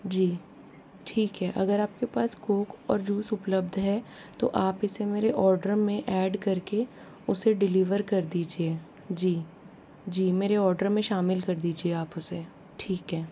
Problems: low volume